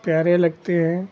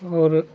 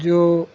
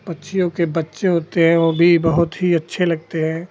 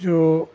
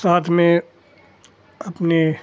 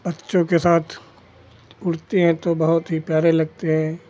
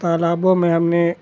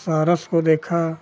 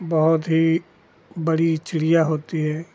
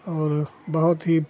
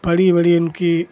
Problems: constant background noise